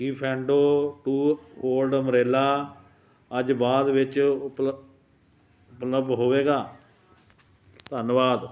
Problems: none marked